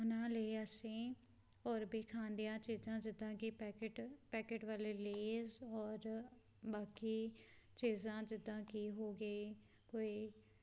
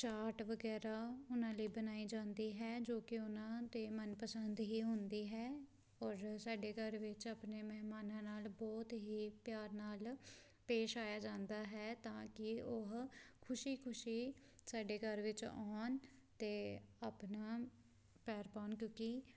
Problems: background sounds at intervals